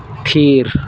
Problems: constant background noise